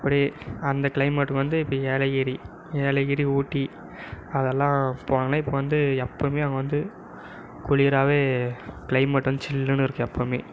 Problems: background conversations at intervals